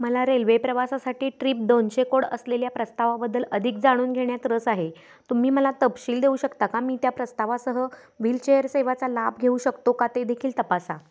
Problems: constant background noise, continuous background conversations